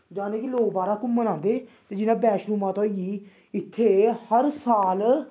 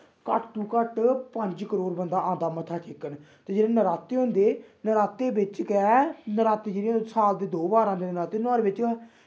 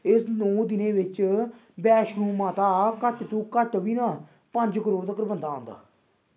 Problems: background sounds at intervals